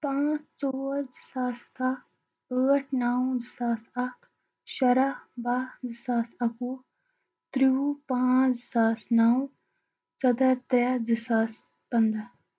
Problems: constant background noise, low volume